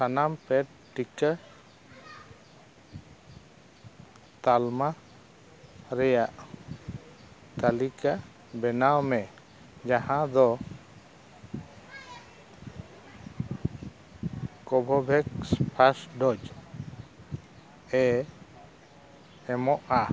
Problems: background sounds at intervals, background conversations at intervals